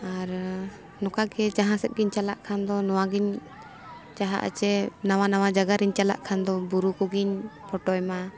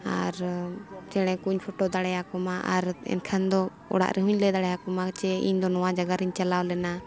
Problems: background sounds at intervals